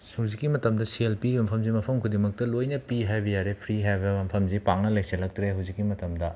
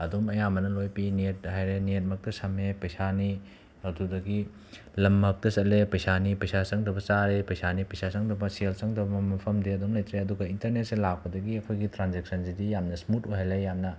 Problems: background sounds at intervals